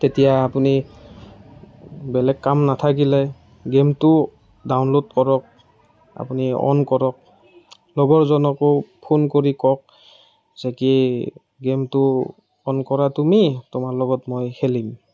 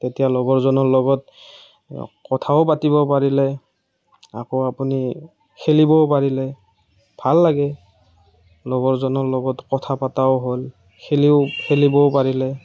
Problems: none marked